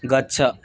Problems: background conversations at intervals